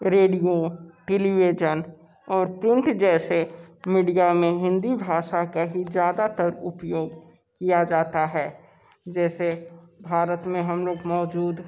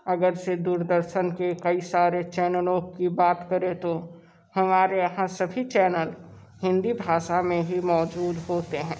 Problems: background sounds at intervals, background conversations at intervals